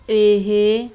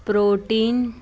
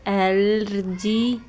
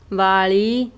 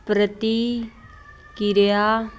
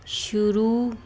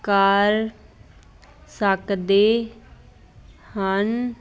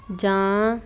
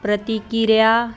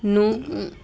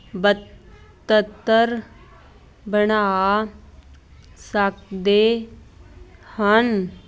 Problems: constant background noise